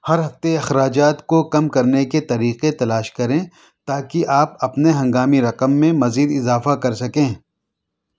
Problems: none marked